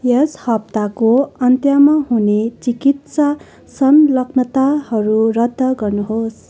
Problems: none marked